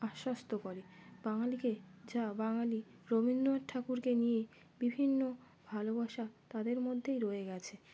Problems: background sounds at intervals